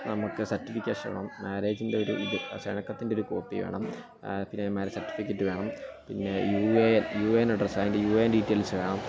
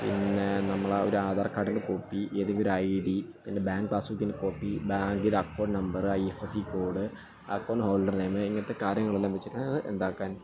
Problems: constant background noise, continuous background conversations, low volume